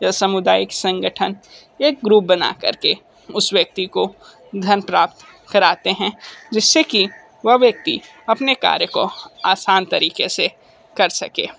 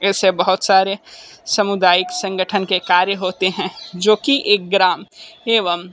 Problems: constant background noise